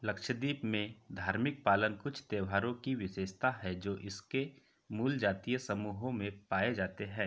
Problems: background sounds at intervals